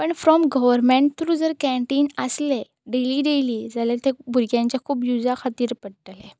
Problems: constant background noise